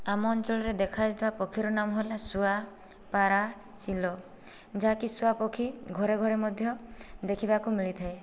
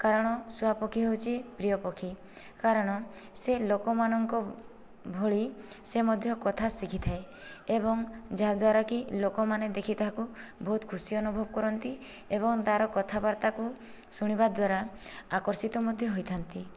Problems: low volume